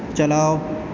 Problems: constant background noise, echo